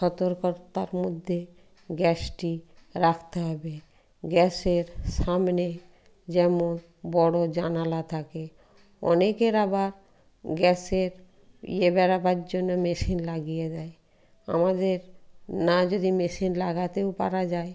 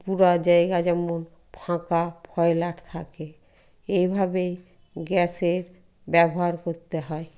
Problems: background sounds at intervals